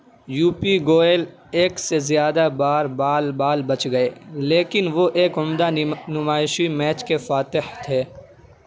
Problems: none marked